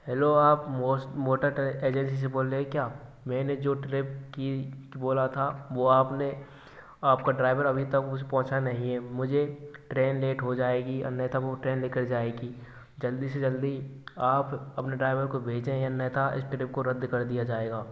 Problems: constant background noise